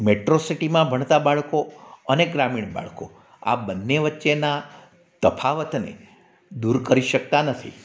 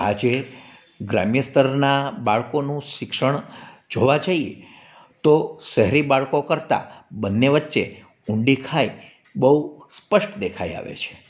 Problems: none marked